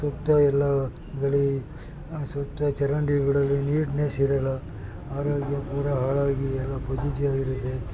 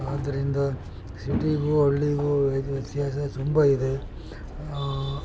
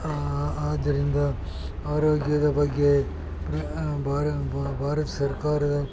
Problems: constant background noise, background conversations at intervals